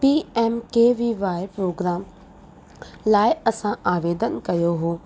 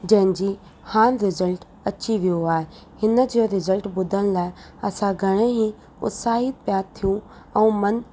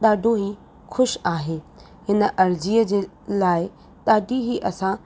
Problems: constant background noise